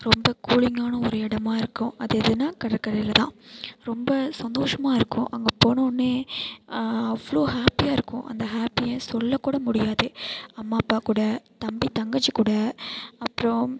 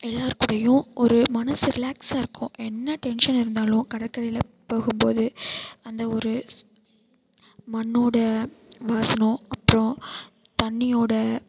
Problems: constant background noise